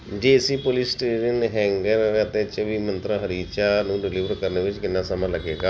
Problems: constant background noise